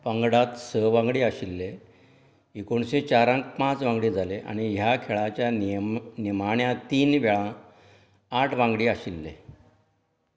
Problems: background sounds at intervals